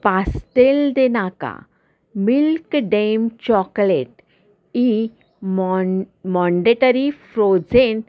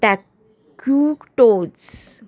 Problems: constant background noise